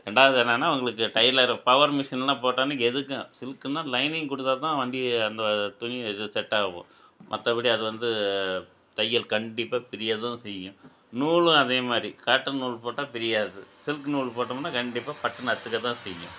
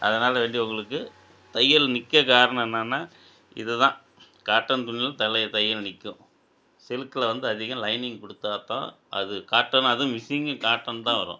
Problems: none marked